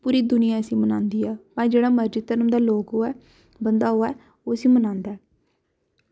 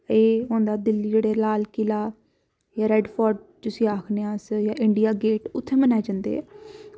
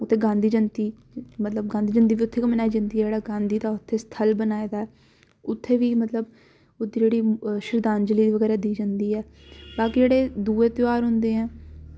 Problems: background sounds at intervals